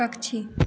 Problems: constant background noise